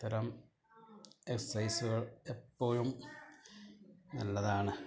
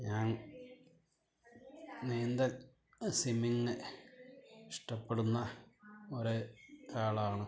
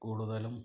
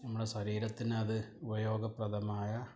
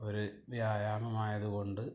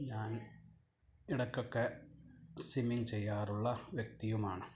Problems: background conversations at intervals, low volume